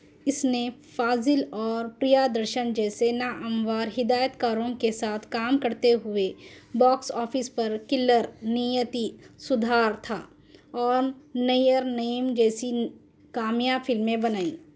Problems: none marked